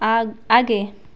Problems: constant background noise